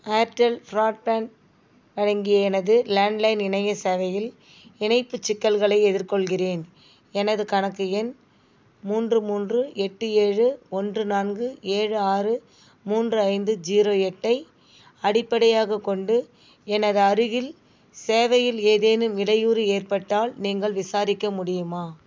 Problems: none marked